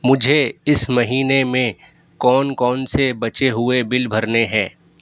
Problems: none marked